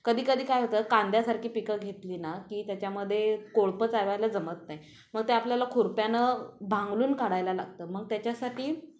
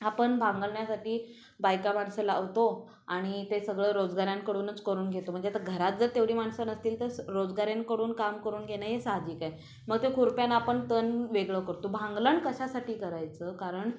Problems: constant background noise, background conversations at intervals